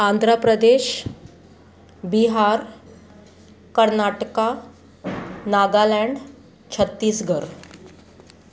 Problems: constant background noise, background conversations at intervals